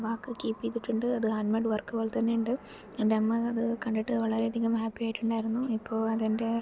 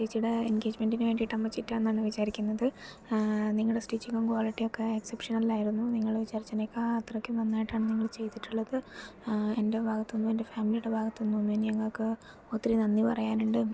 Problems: low volume